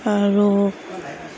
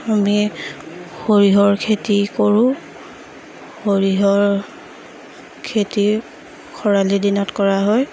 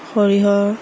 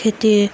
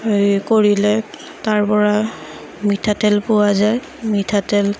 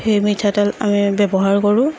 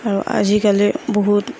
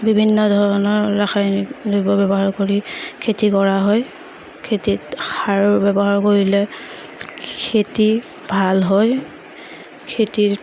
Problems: background sounds at intervals, background conversations at intervals